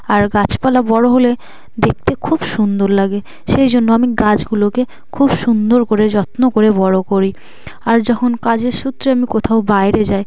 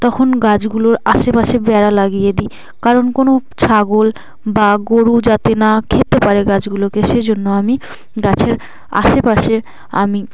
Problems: constant background noise